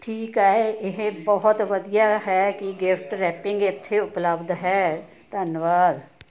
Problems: none marked